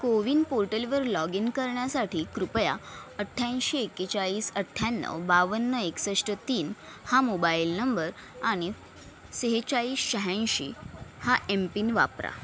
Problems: none marked